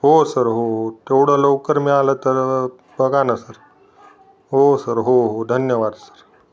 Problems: background sounds at intervals